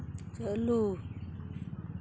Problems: none marked